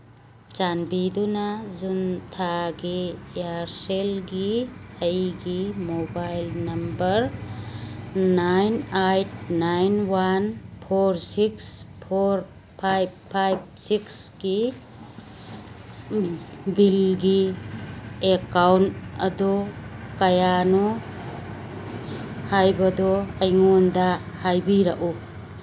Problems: background sounds at intervals